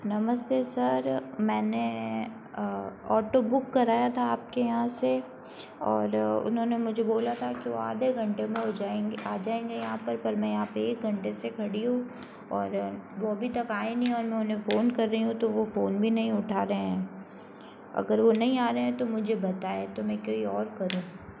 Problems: constant background noise